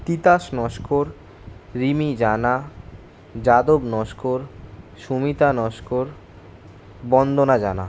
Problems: constant background noise